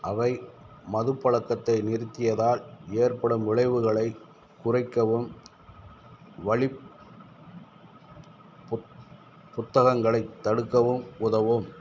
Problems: none marked